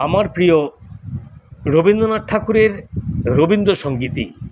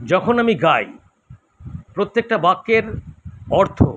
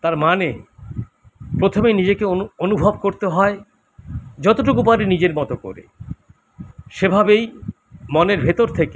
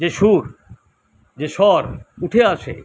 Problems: constant background noise